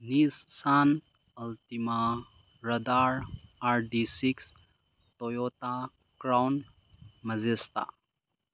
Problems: low volume